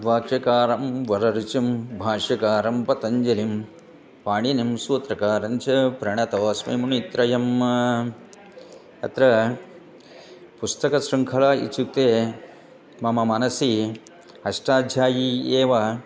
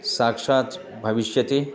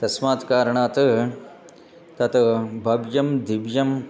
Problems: none marked